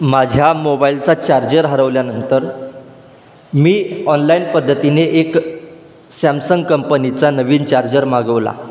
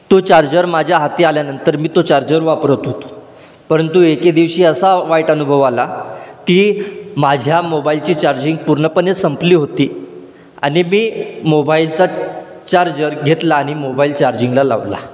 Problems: constant background noise